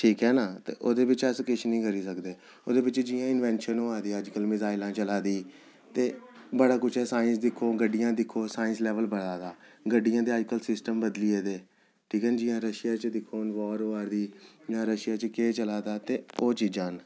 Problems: none marked